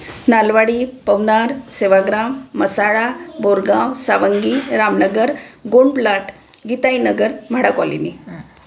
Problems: constant background noise